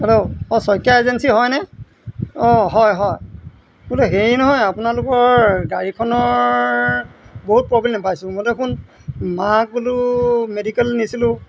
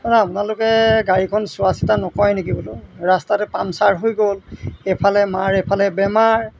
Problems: none marked